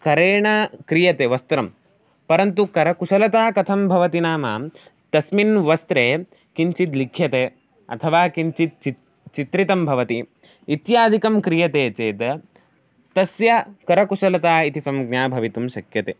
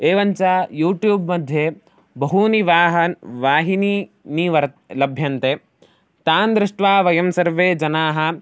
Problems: none marked